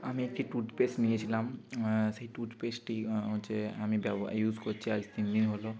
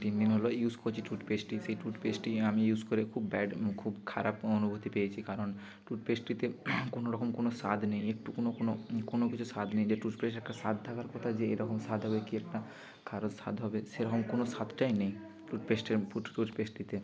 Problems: none marked